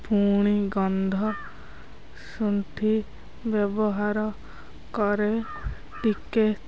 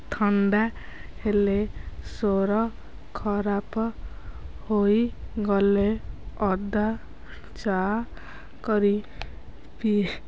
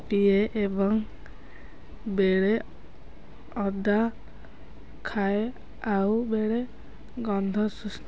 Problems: constant background noise, continuous background conversations